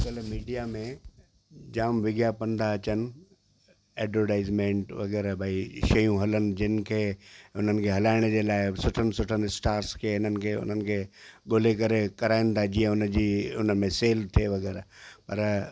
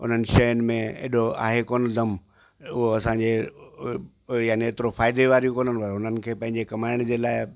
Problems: constant background noise